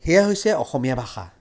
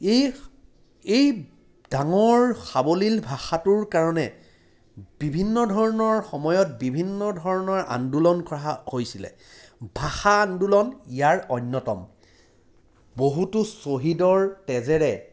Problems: background sounds at intervals